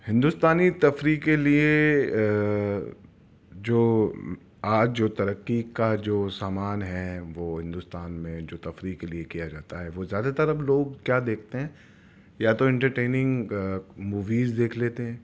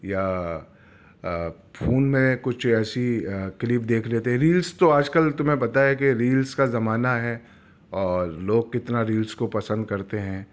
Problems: none marked